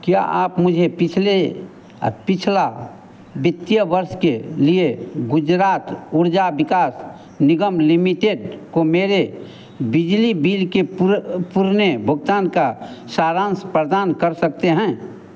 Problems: constant background noise